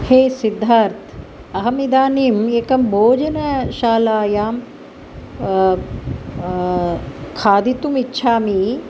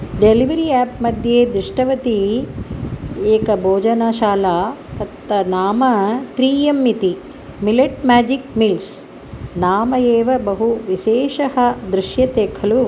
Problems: none marked